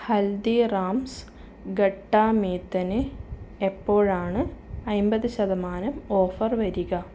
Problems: background sounds at intervals